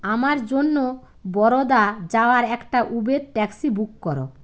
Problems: none marked